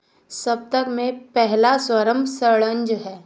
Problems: none marked